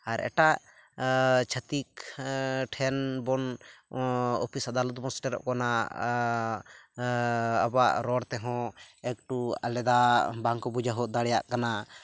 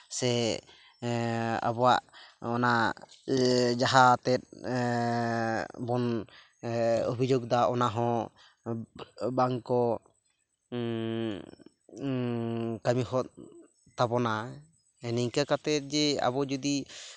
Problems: none marked